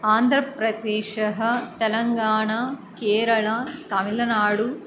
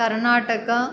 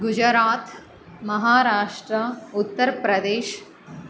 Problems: background sounds at intervals